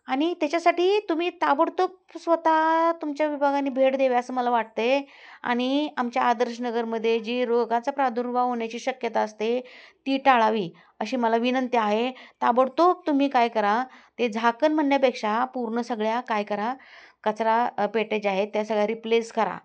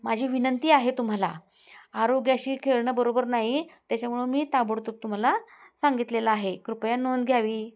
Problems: constant background noise, background conversations at intervals